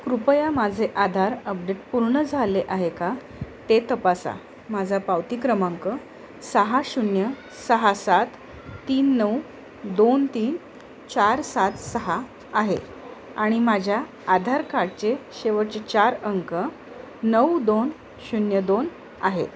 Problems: constant background noise